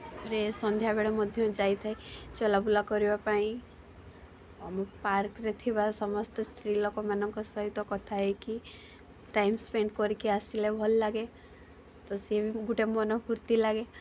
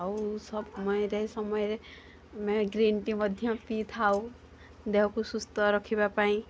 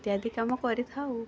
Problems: constant background noise, continuous background conversations